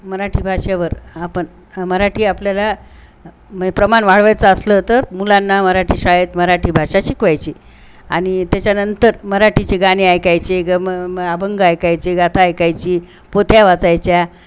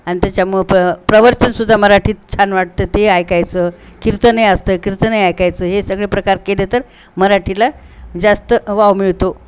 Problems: constant background noise